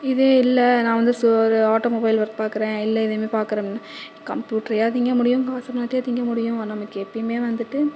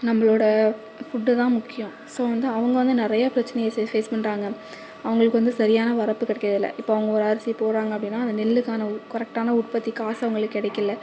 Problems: constant background noise, echo